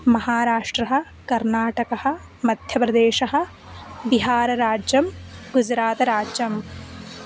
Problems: constant background noise